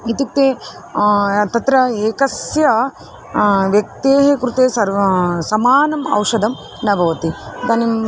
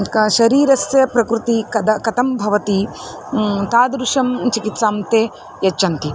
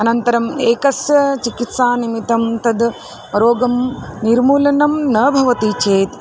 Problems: constant background noise, background conversations at intervals